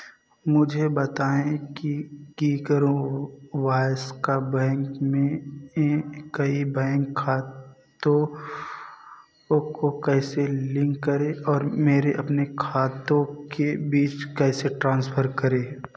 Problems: background sounds at intervals